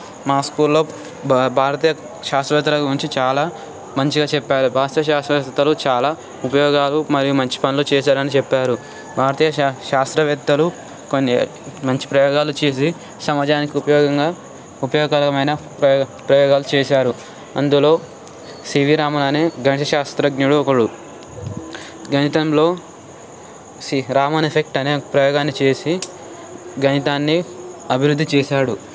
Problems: none marked